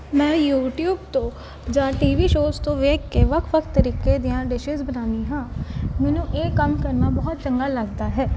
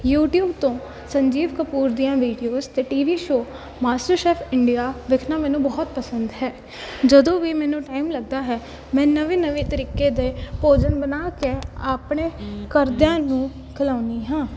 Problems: none marked